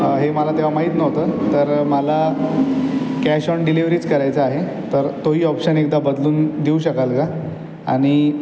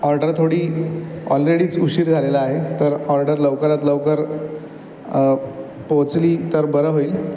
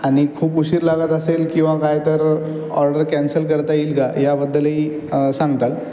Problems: background sounds at intervals